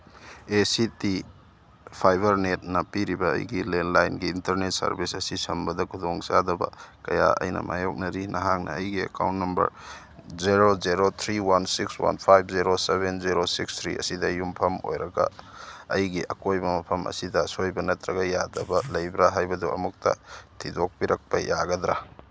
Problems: none marked